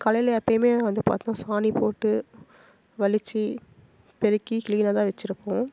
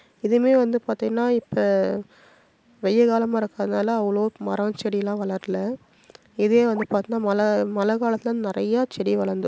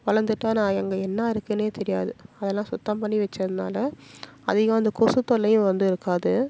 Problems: none marked